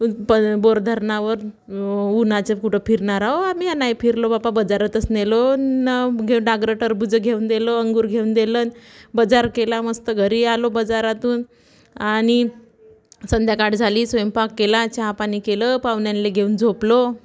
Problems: constant background noise, background conversations at intervals